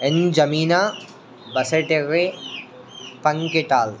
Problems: constant background noise